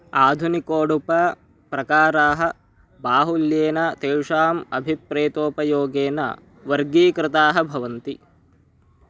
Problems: continuous background conversations